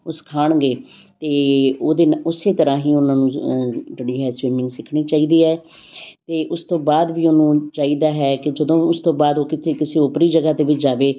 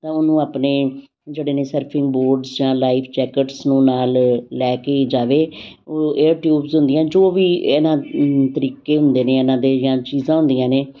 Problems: constant background noise